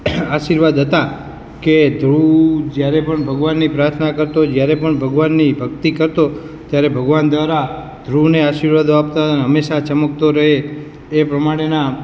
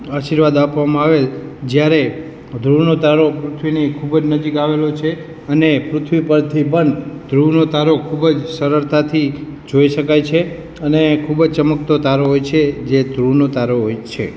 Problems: background sounds at intervals